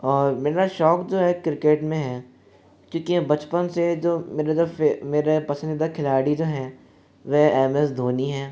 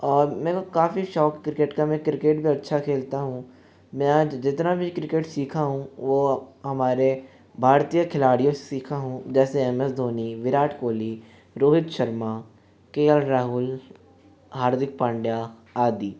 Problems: constant background noise, continuous background conversations